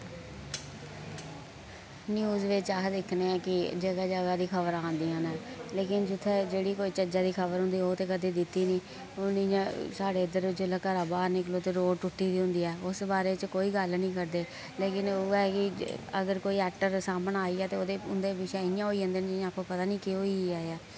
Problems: constant background noise, low volume